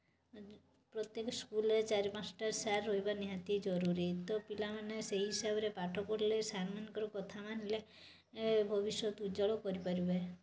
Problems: constant background noise, background conversations at intervals